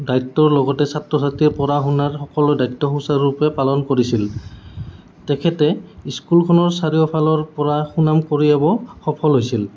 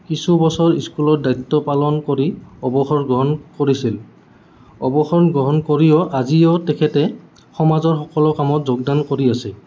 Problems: constant background noise